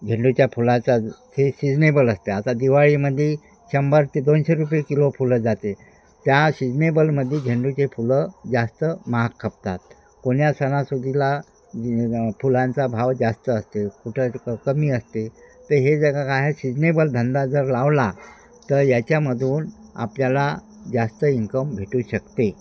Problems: none marked